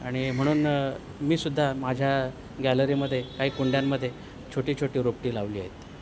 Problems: none marked